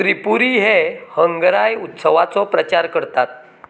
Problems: none marked